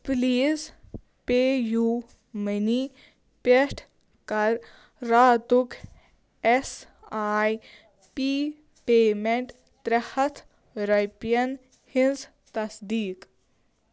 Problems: none marked